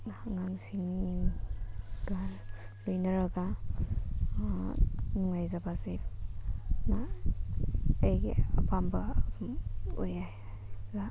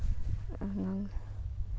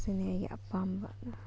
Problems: background sounds at intervals